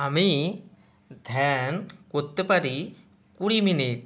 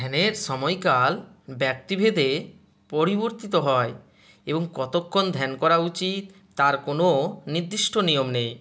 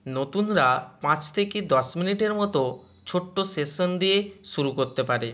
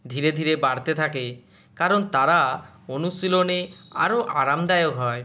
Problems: none marked